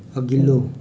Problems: none marked